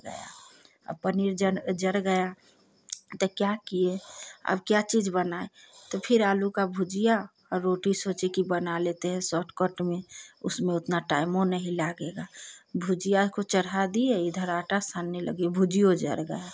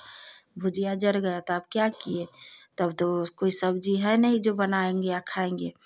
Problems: none marked